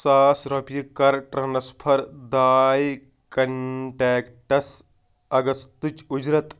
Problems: none marked